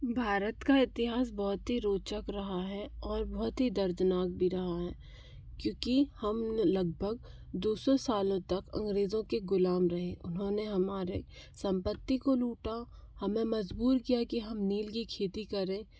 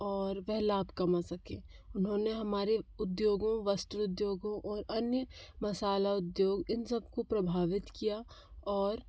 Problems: constant background noise